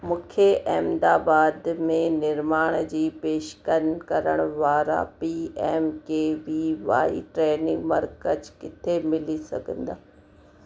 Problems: constant background noise